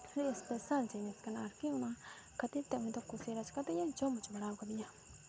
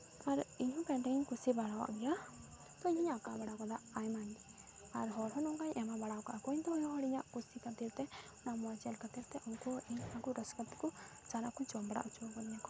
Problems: background sounds at intervals, low volume